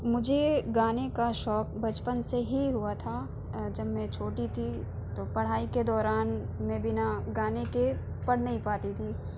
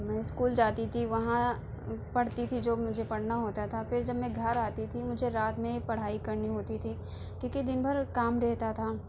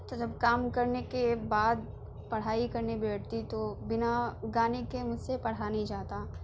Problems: background sounds at intervals